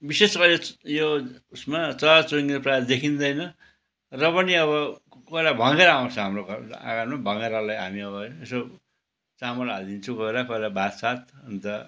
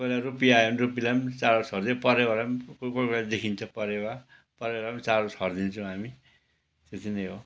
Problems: none marked